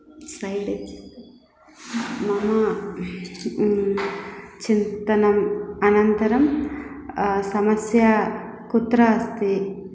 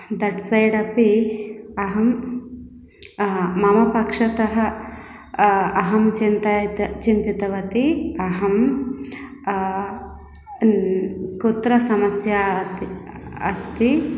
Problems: none marked